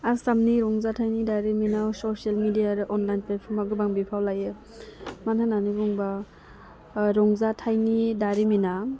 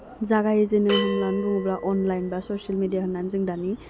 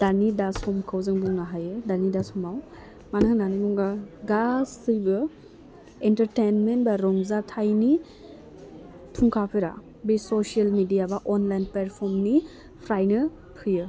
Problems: low volume